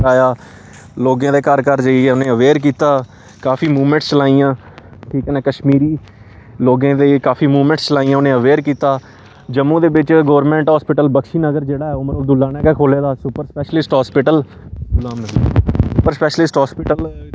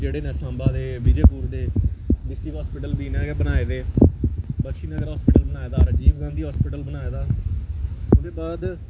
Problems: constant background noise